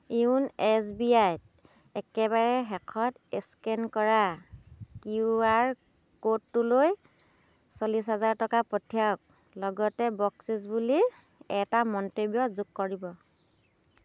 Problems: constant background noise